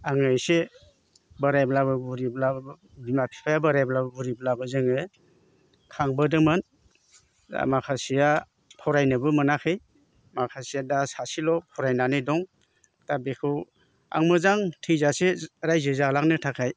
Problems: constant background noise